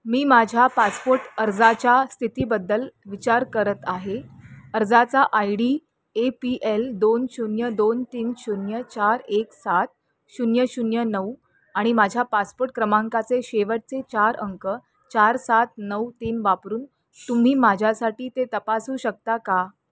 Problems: constant background noise, background conversations at intervals